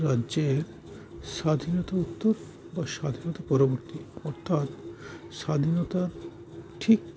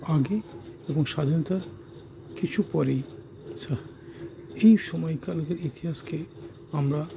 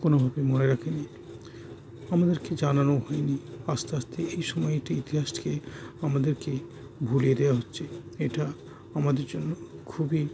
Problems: constant background noise